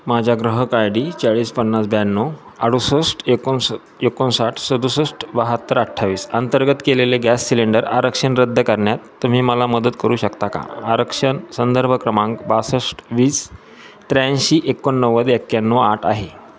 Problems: none marked